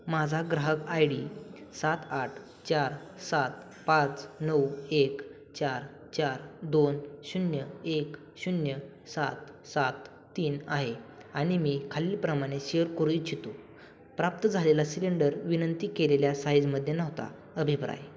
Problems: none marked